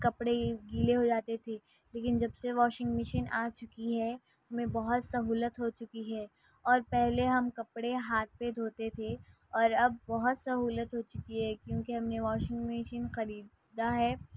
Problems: constant background noise, low volume